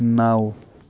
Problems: background sounds at intervals